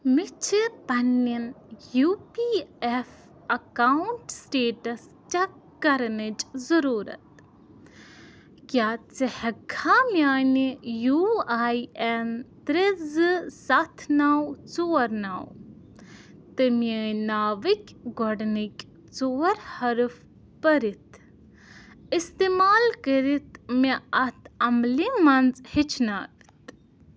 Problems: constant background noise